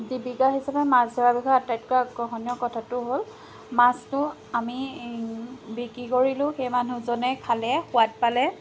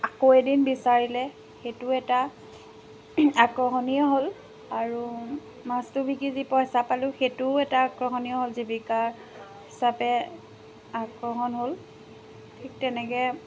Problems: constant background noise